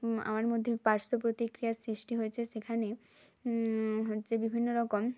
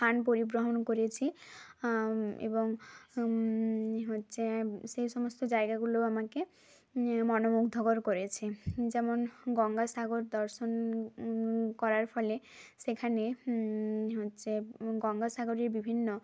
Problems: none marked